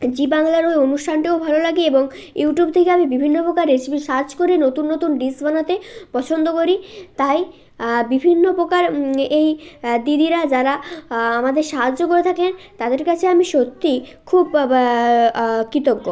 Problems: background sounds at intervals, continuous background conversations